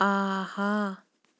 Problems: background sounds at intervals